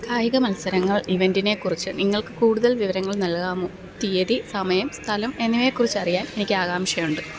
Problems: none marked